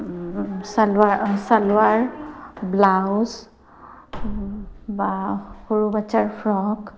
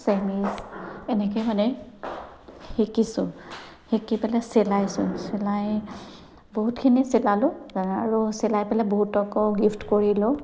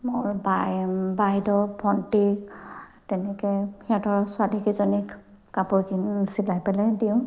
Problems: constant background noise